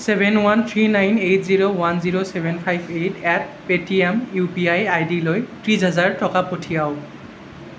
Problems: none marked